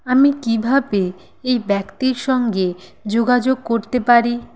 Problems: constant background noise